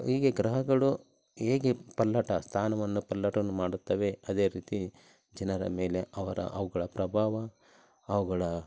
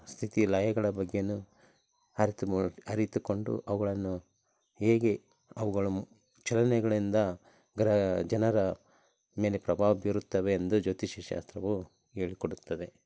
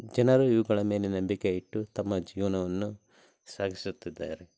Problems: none marked